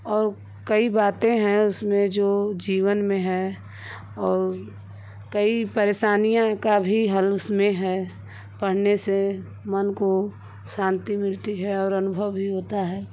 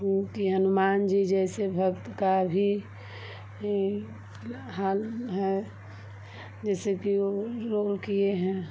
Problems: constant background noise